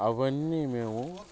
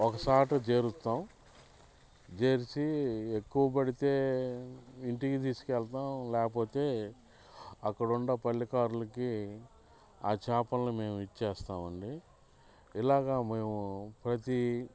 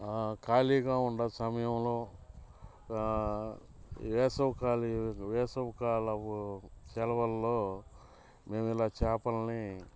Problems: background sounds at intervals